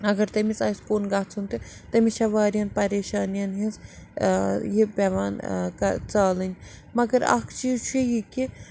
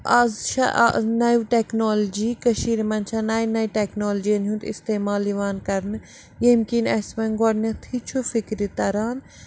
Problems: none marked